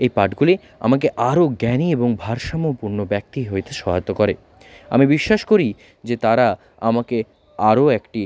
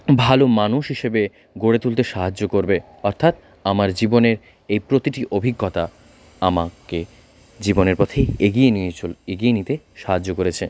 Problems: background conversations at intervals